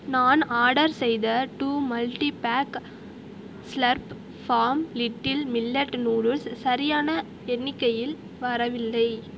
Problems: constant background noise